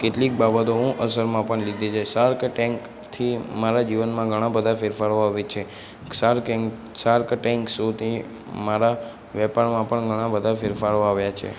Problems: background sounds at intervals, background conversations at intervals